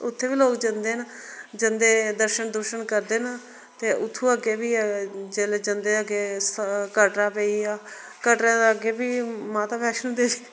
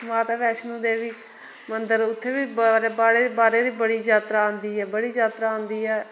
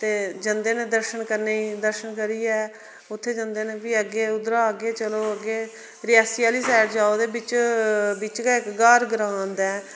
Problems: none marked